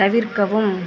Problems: constant background noise, continuous background conversations